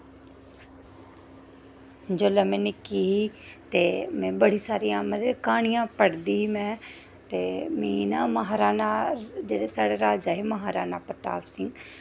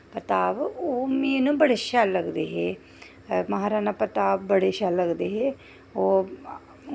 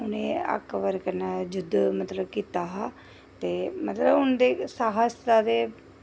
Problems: none marked